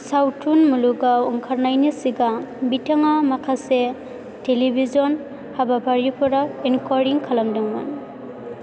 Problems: constant background noise